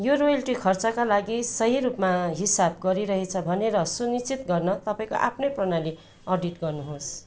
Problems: constant background noise